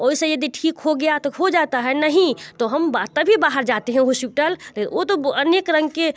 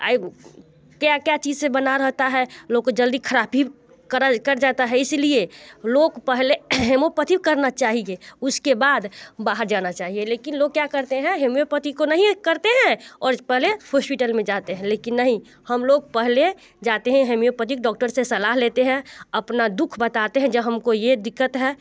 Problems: constant background noise